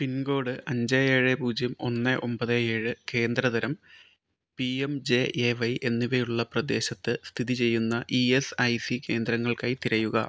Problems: none marked